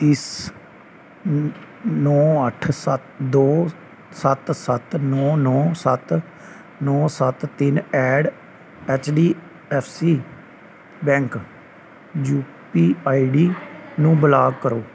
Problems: background conversations at intervals